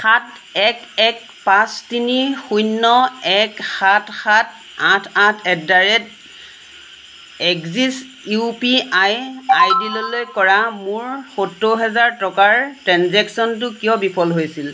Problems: constant background noise